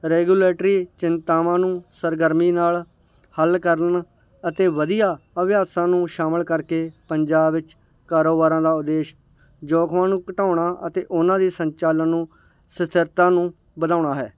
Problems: none marked